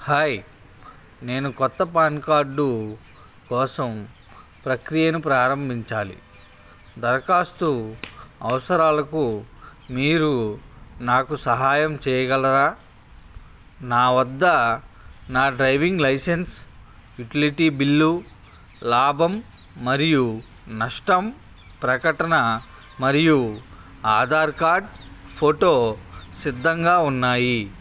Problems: constant background noise